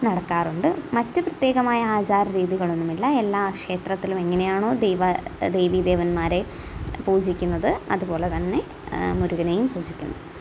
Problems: constant background noise, low volume